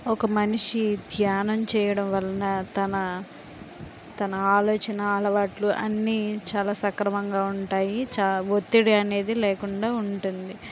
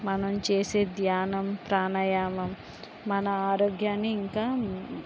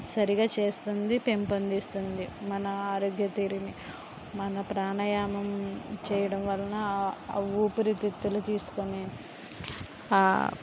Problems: constant background noise, background conversations at intervals